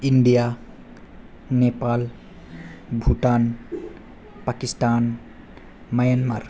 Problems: low volume